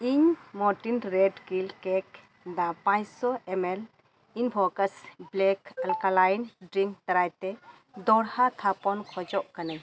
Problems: constant background noise